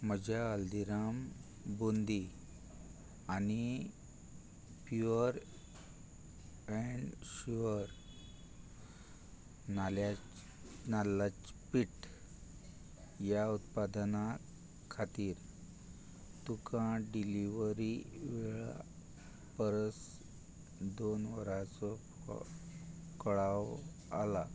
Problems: constant background noise